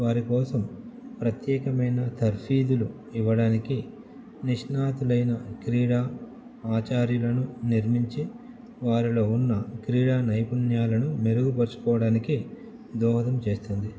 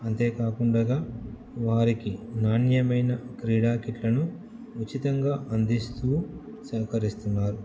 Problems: none marked